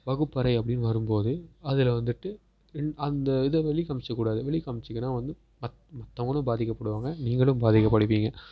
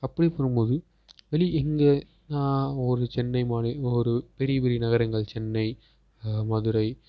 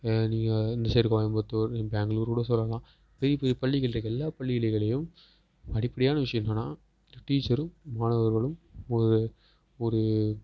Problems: background sounds at intervals